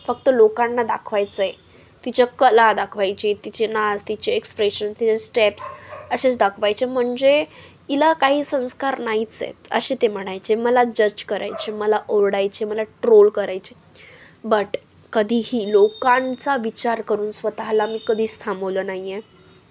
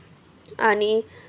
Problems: none marked